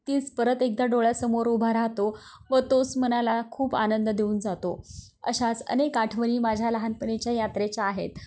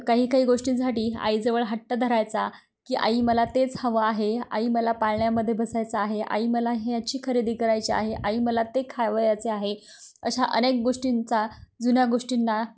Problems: background sounds at intervals